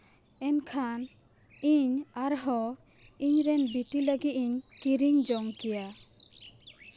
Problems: background sounds at intervals